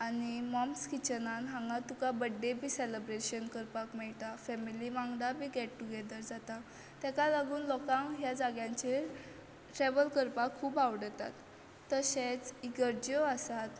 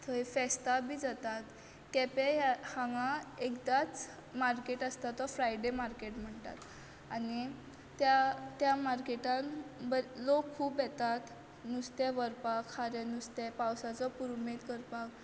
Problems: none marked